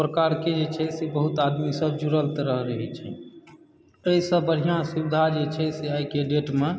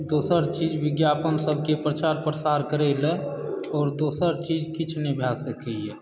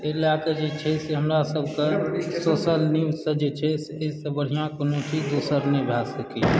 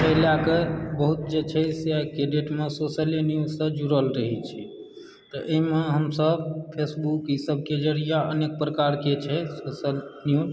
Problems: background sounds at intervals, background conversations at intervals